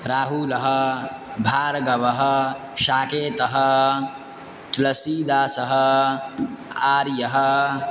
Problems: constant background noise